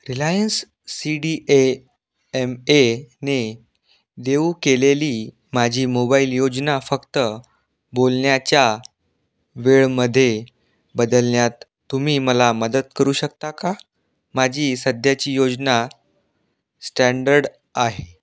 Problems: none marked